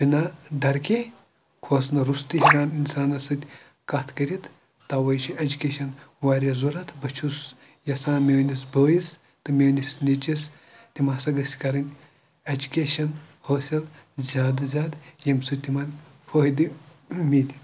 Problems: background sounds at intervals, background conversations at intervals